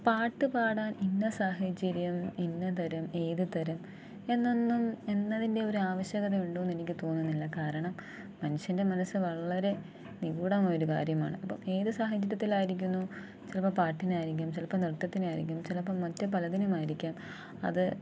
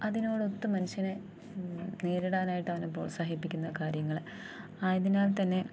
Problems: low volume